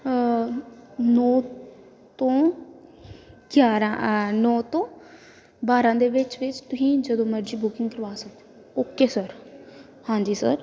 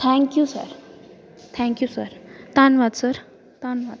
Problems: background conversations at intervals